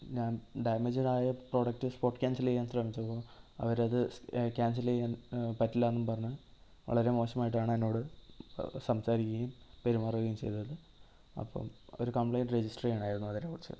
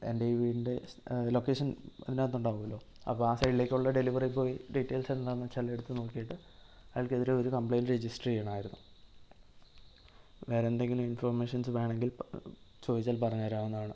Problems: low volume